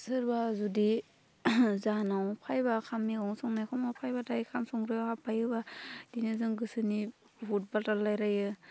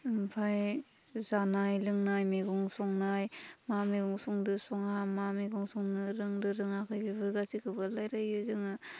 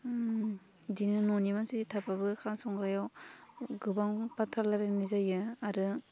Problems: low volume